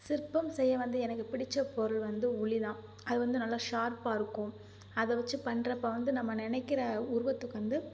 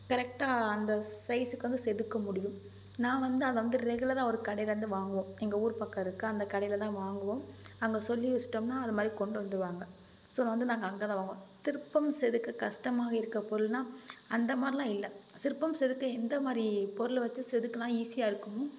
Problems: none marked